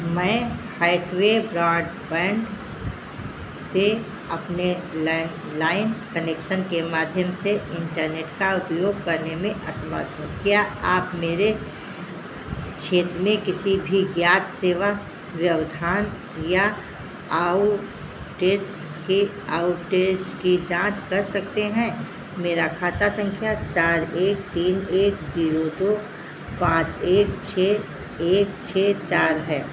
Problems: constant background noise